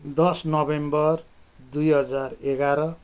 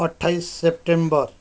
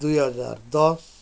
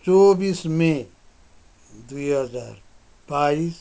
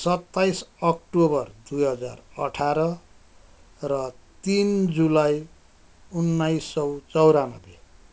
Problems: none marked